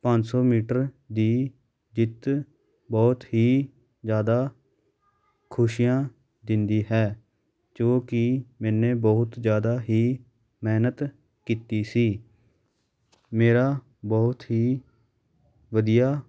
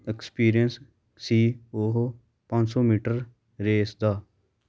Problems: background sounds at intervals